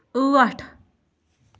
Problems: background sounds at intervals